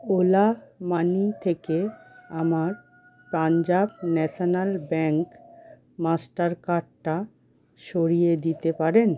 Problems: constant background noise